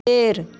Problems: none marked